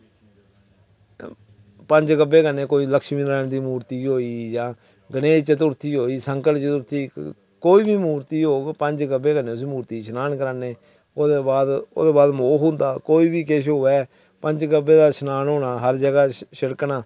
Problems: none marked